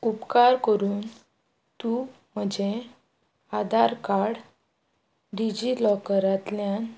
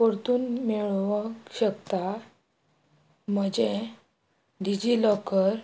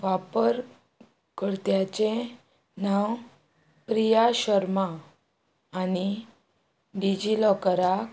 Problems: none marked